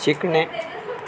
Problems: constant background noise, continuous background conversations